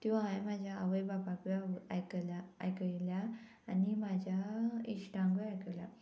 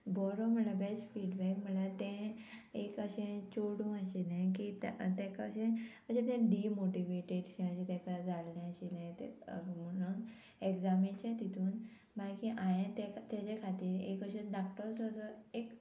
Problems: constant background noise